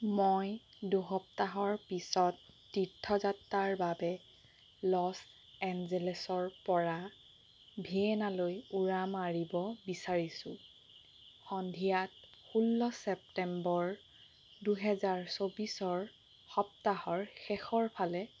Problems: constant background noise